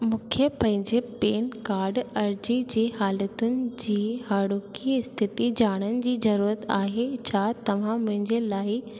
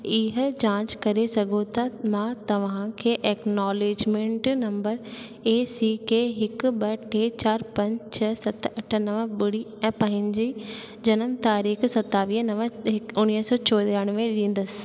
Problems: constant background noise, echo